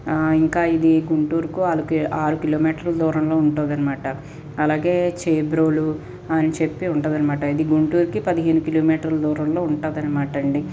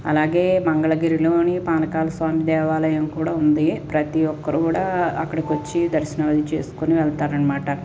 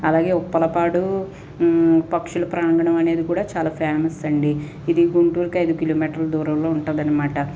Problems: none marked